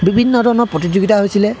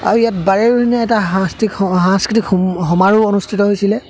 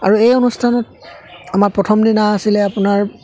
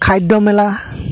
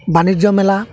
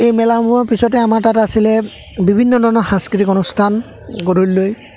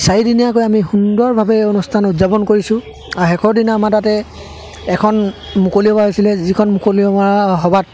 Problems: constant background noise, background conversations at intervals